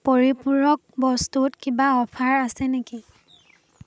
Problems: background sounds at intervals